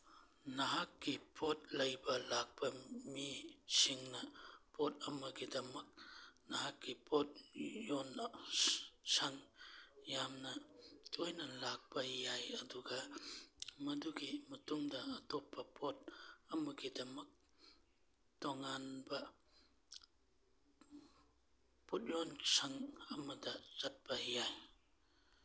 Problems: none marked